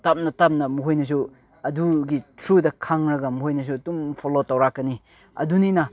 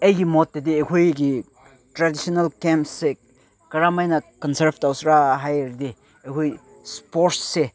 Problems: background sounds at intervals